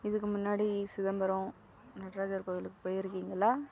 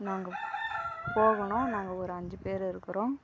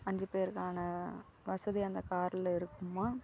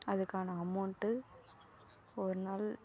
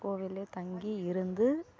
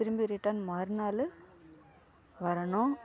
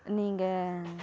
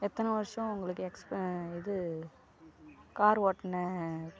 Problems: background conversations at intervals, low volume